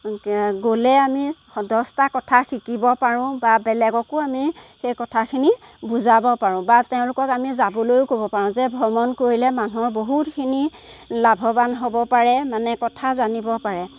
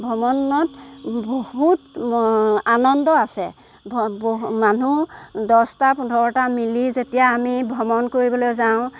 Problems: background sounds at intervals